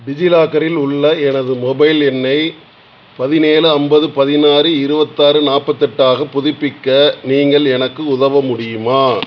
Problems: constant background noise